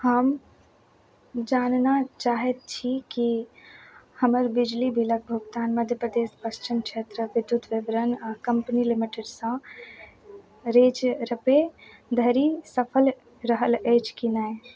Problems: none marked